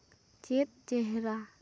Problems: none marked